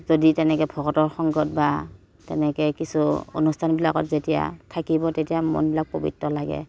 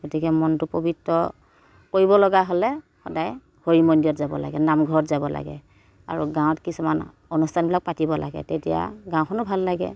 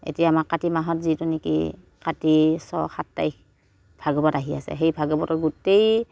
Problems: none marked